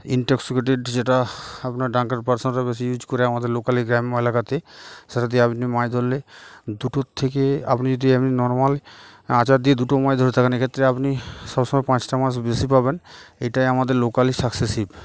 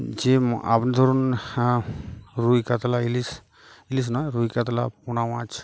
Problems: background sounds at intervals, background conversations at intervals